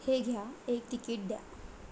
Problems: background sounds at intervals